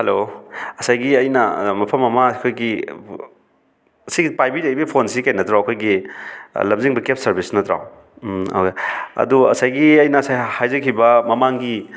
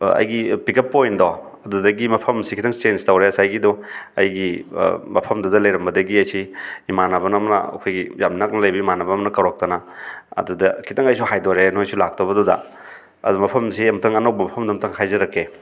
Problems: none marked